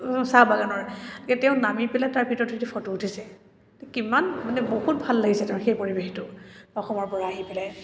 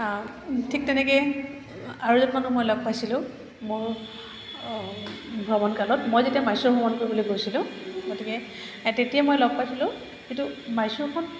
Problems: constant background noise